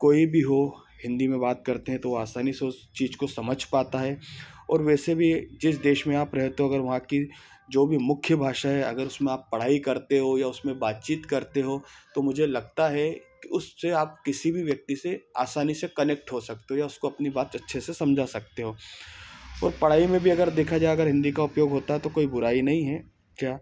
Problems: background sounds at intervals